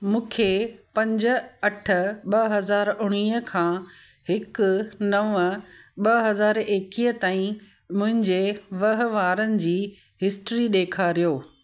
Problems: constant background noise, echo